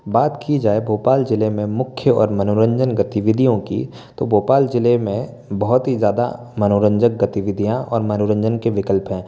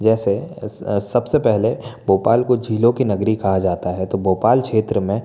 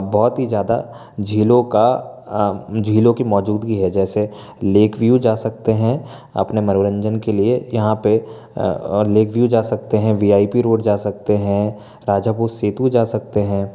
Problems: constant background noise